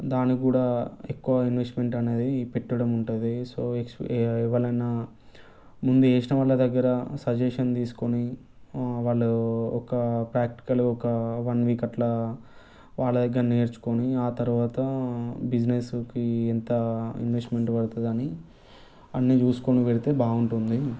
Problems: background conversations at intervals